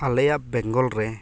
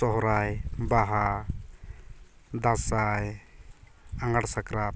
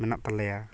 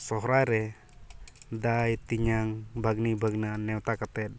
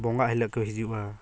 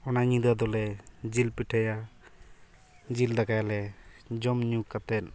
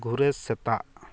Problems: constant background noise, continuous background conversations